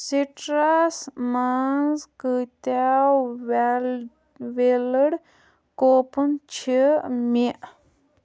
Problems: background sounds at intervals